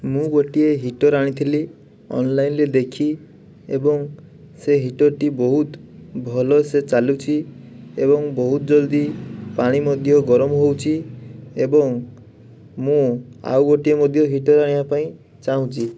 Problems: background sounds at intervals